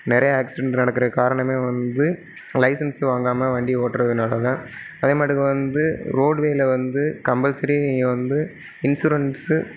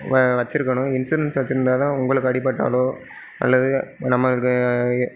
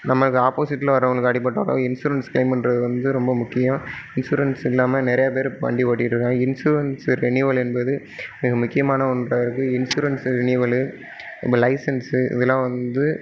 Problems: none marked